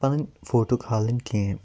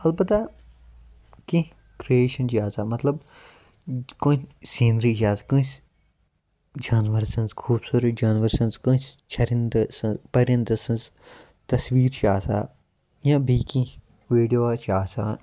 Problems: background sounds at intervals